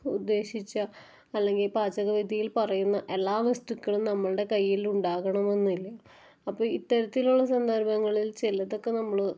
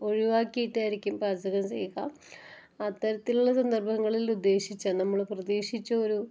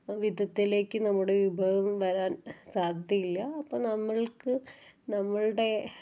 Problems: low volume